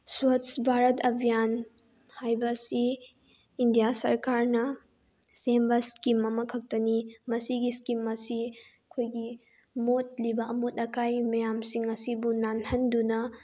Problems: none marked